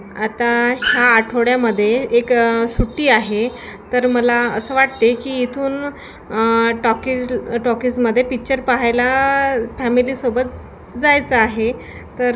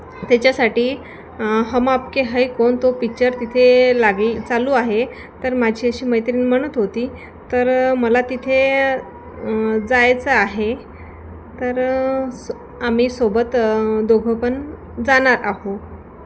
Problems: constant background noise, continuous background conversations